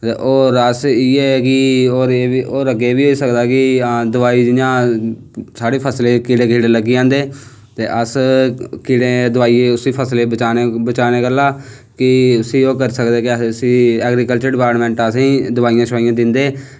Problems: none marked